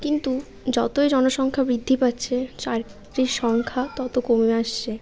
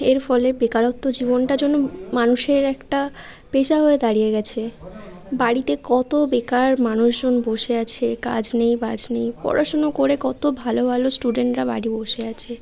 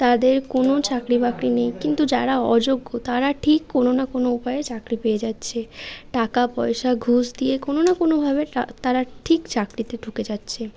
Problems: constant background noise